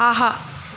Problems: constant background noise